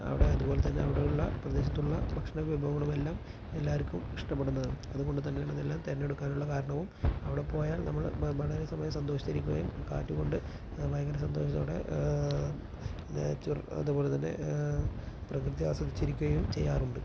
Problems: constant background noise